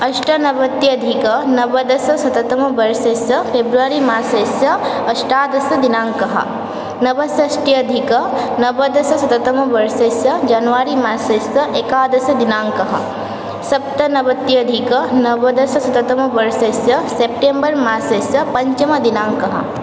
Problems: constant background noise